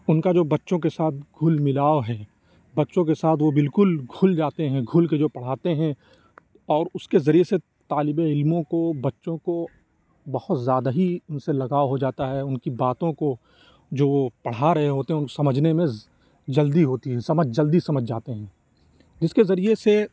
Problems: none marked